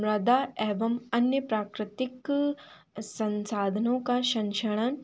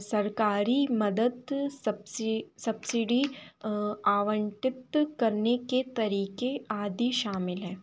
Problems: constant background noise